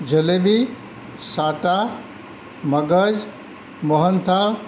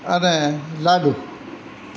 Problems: constant background noise